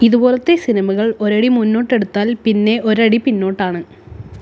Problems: background sounds at intervals